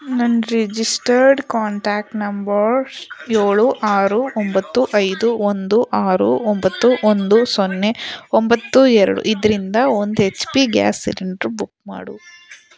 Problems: background conversations at intervals